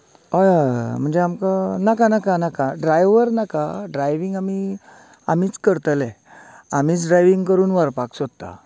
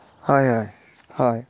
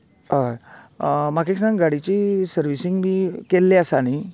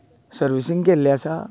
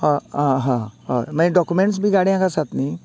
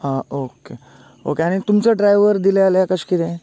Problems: continuous background conversations